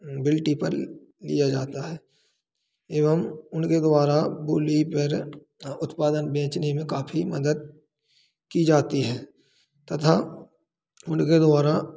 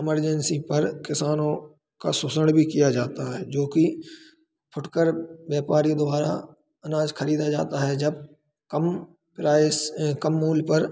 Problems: constant background noise